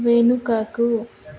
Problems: background conversations at intervals